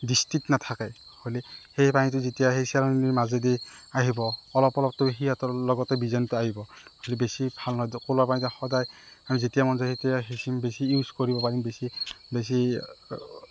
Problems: none marked